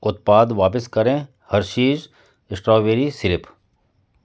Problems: none marked